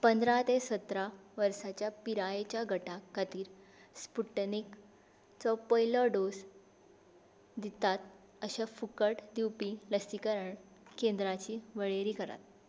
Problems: constant background noise